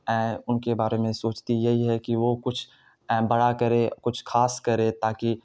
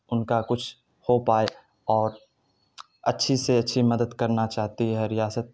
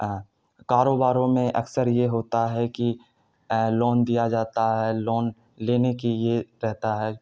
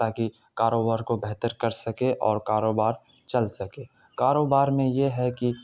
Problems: none marked